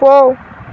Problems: none marked